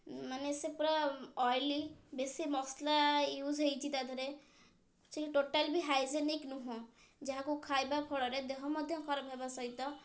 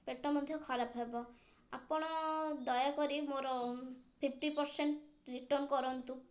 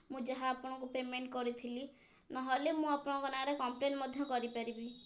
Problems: low volume